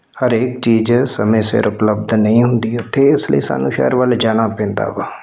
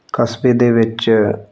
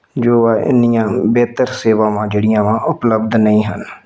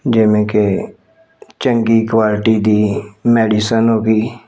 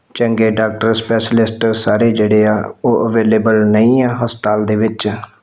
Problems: none marked